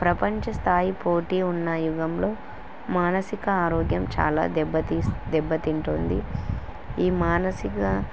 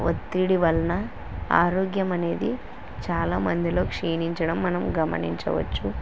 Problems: constant background noise